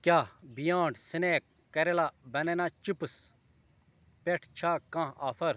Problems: constant background noise